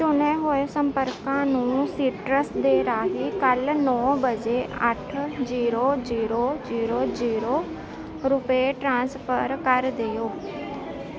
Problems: constant background noise